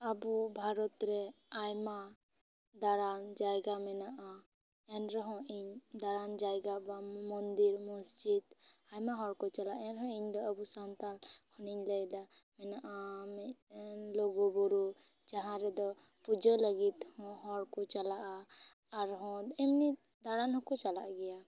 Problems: none marked